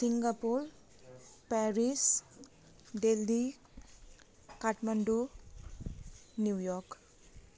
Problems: constant background noise